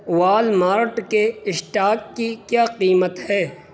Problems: constant background noise